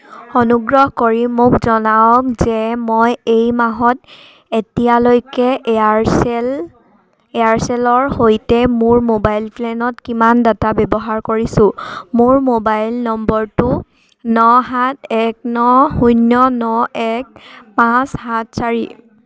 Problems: none marked